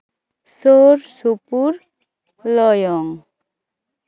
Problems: background sounds at intervals